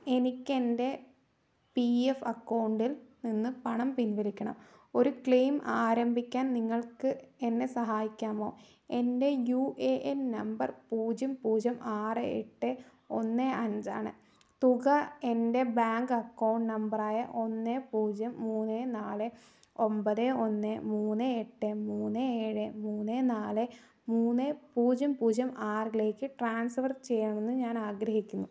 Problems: none marked